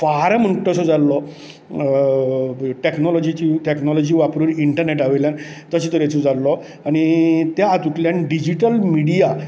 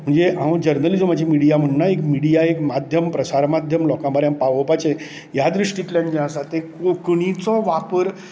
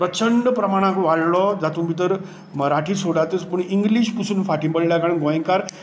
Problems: none marked